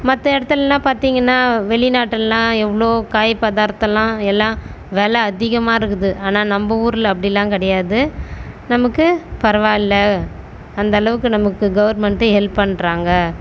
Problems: none marked